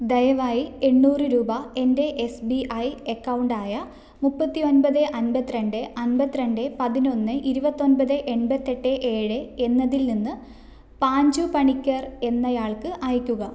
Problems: none marked